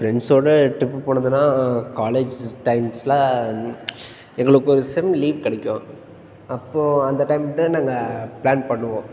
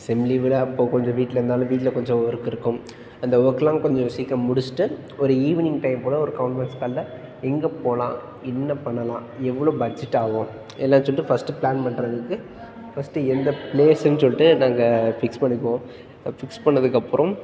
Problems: background sounds at intervals